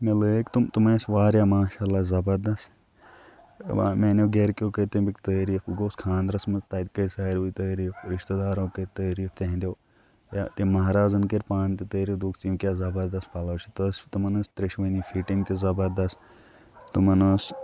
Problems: constant background noise